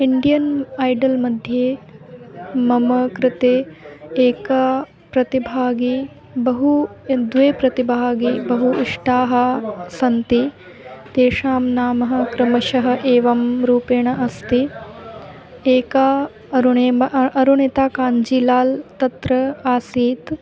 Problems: background sounds at intervals